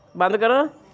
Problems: background conversations at intervals